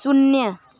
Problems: constant background noise